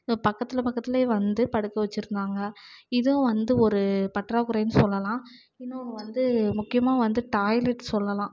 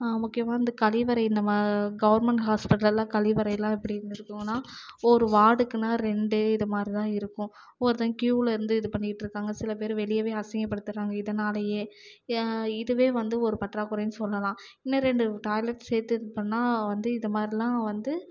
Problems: low volume